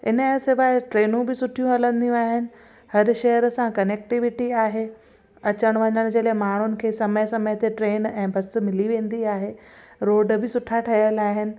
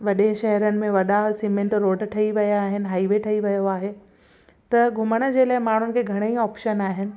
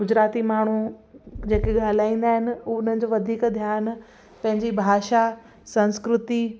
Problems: constant background noise